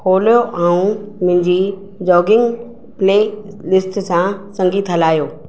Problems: none marked